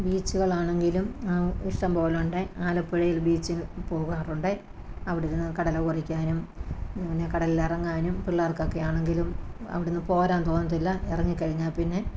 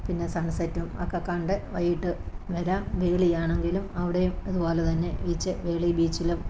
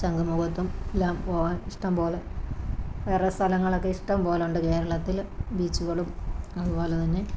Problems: none marked